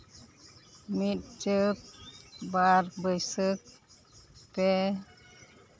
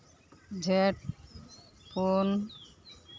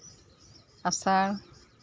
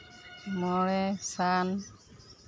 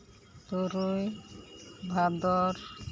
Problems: background sounds at intervals